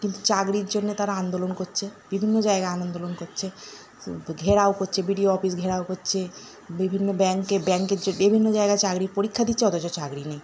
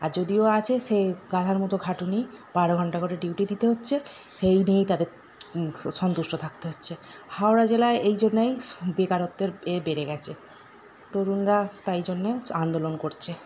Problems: none marked